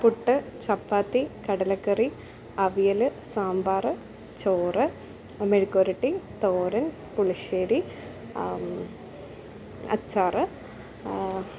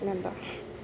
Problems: none marked